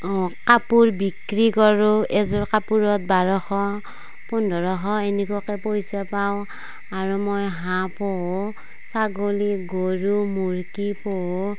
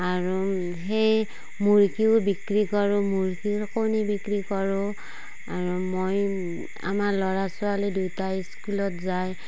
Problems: background sounds at intervals